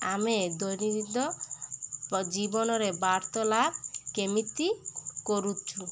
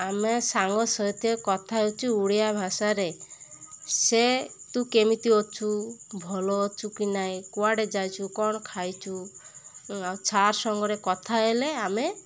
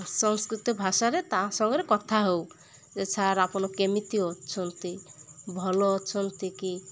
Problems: constant background noise